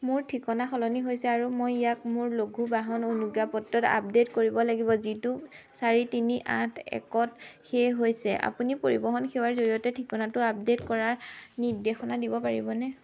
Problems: constant background noise